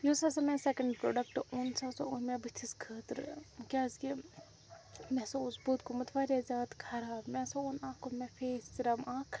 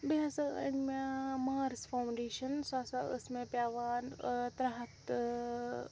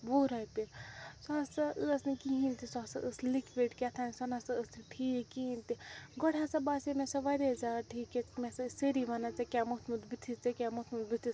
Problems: constant background noise, low volume